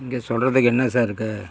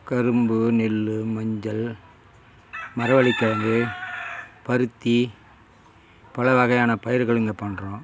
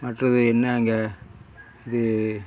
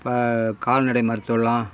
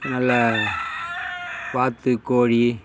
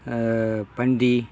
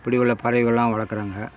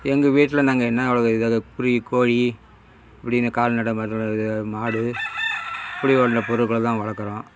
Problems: constant background noise